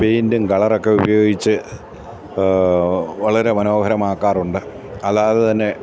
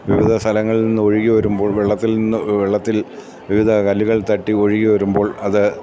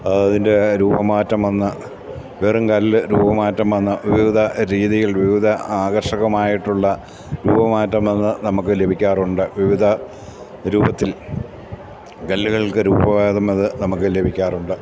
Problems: none marked